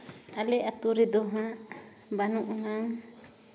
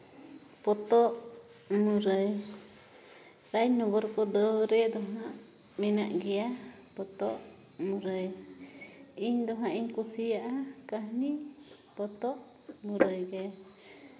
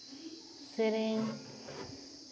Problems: background sounds at intervals